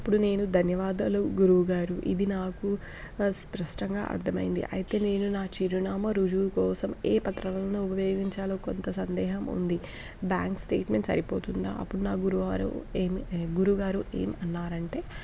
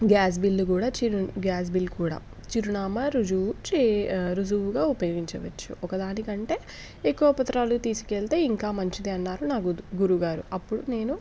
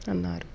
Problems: background sounds at intervals